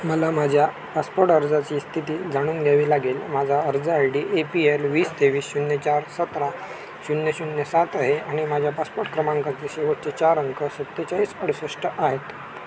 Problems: constant background noise, continuous background conversations